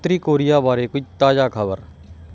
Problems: background sounds at intervals